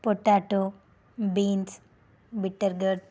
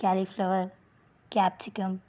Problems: none marked